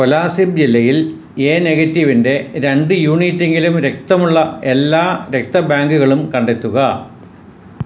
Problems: constant background noise